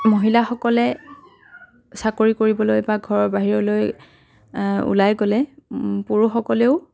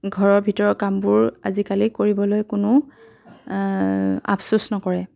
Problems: continuous background conversations